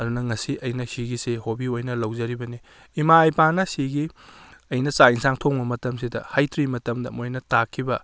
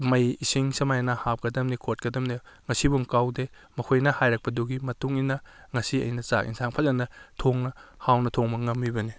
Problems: none marked